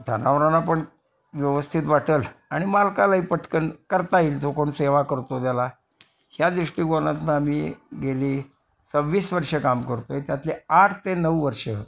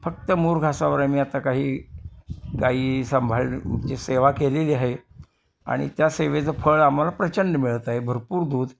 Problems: constant background noise, continuous background conversations